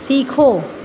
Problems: none marked